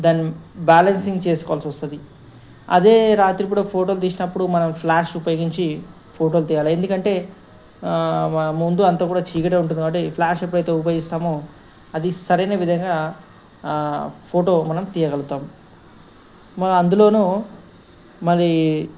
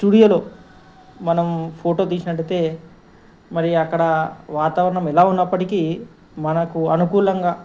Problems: none marked